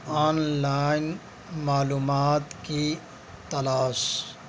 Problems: constant background noise, background conversations at intervals